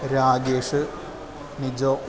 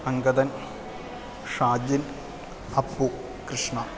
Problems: constant background noise